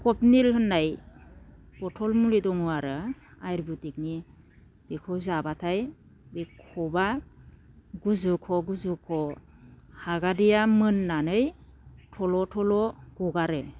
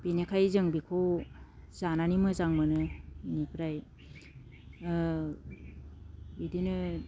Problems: none marked